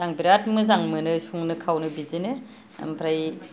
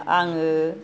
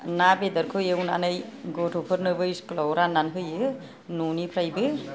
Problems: none marked